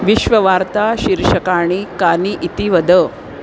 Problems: constant background noise